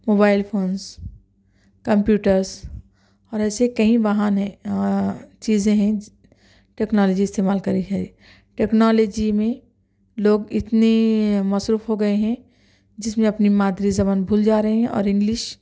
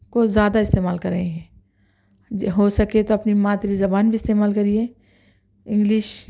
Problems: none marked